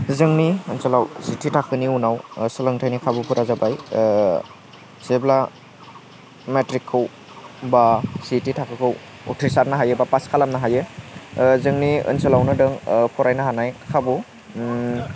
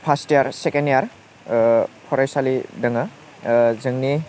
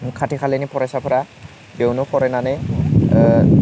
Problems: constant background noise